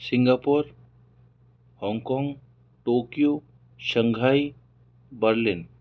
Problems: none marked